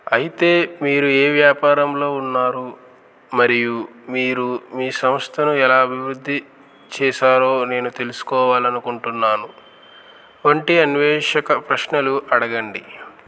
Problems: constant background noise